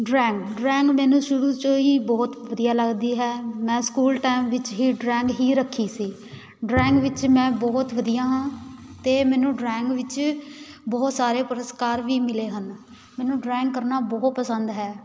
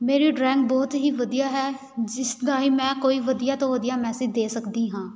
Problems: background sounds at intervals